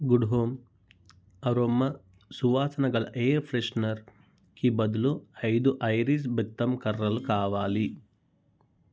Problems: none marked